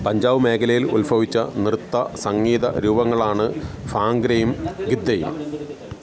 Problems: constant background noise, background conversations at intervals